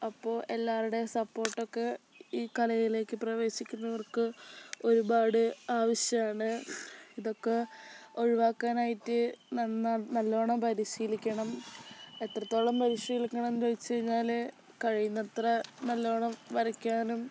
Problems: background sounds at intervals